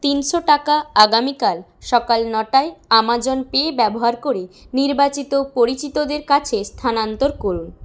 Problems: background sounds at intervals